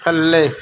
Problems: none marked